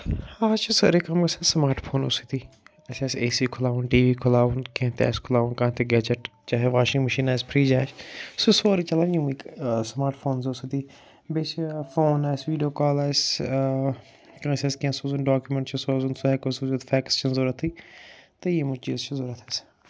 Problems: none marked